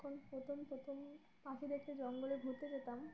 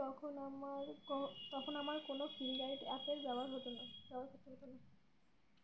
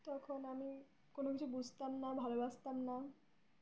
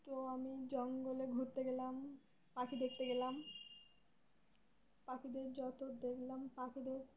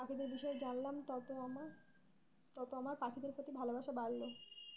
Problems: none marked